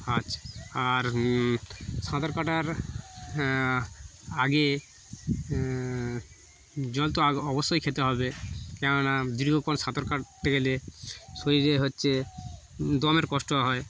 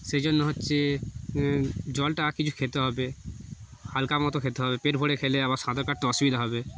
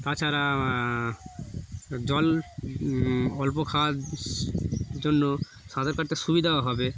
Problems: constant background noise